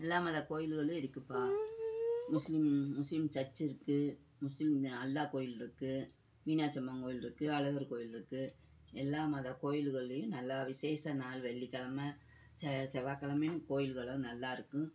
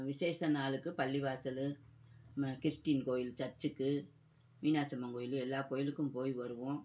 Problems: background conversations at intervals